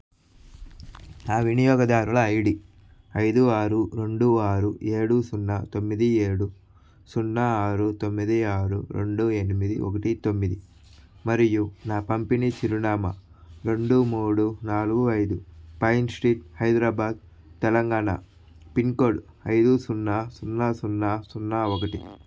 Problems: background sounds at intervals